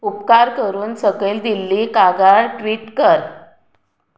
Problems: none marked